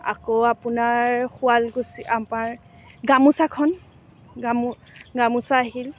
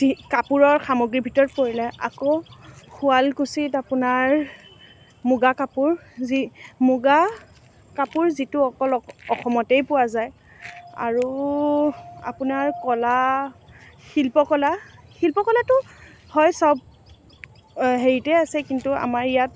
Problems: none marked